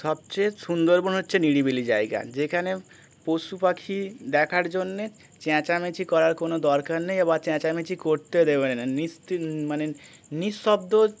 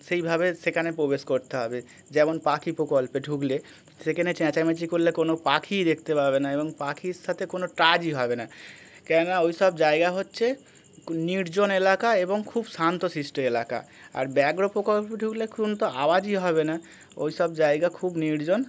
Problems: none marked